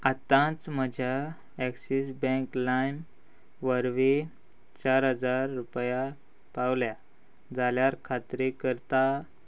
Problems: none marked